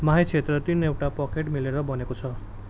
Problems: constant background noise